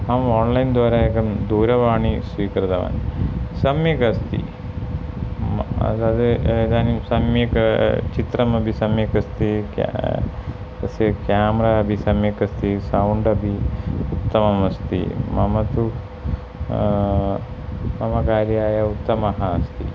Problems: constant background noise